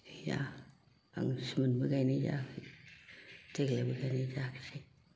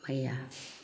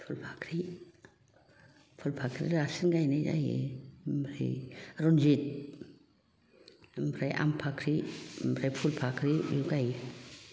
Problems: background sounds at intervals, background conversations at intervals